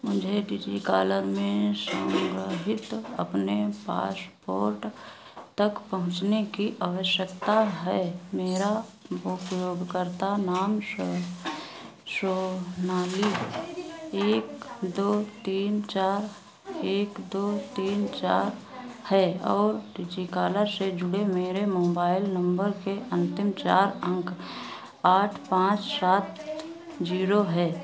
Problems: none marked